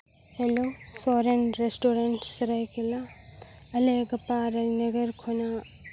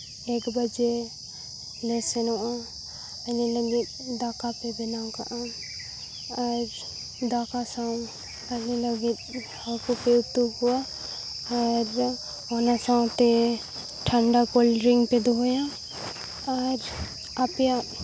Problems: background sounds at intervals